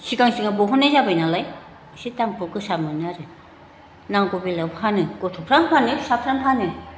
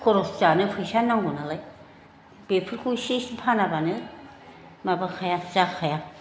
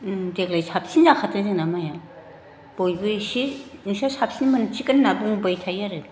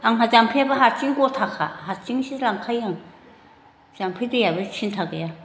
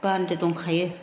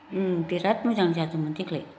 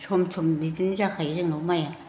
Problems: constant background noise